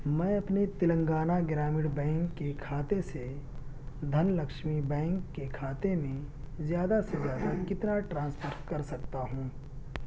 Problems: background sounds at intervals, low volume